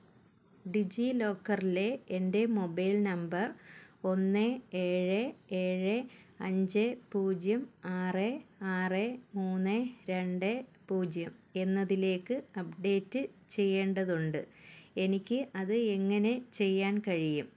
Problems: background sounds at intervals